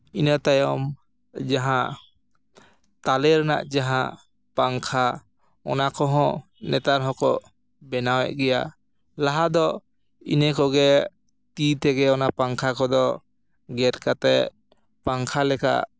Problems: none marked